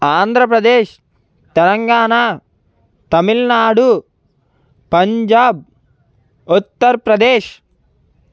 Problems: constant background noise